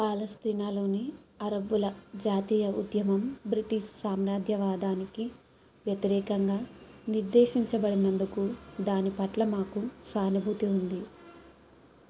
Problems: low volume